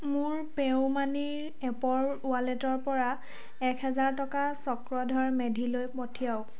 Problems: constant background noise